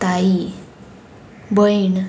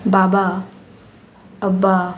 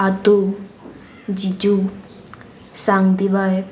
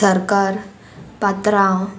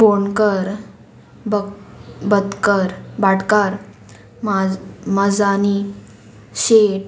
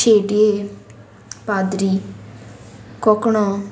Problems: none marked